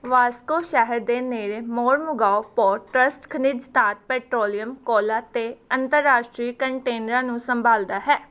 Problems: none marked